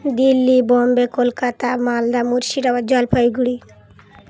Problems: none marked